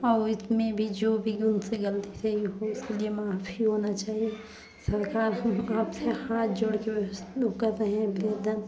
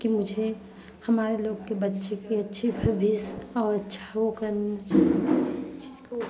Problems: continuous background conversations